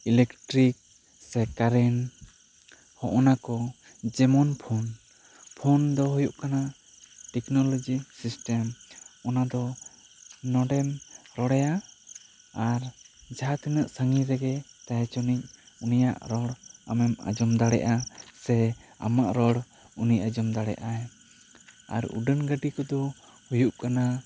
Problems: none marked